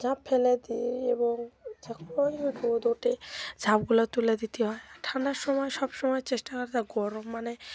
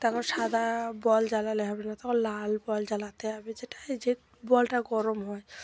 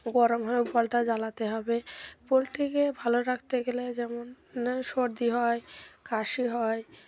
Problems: background conversations at intervals